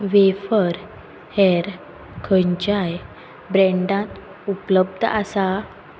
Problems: constant background noise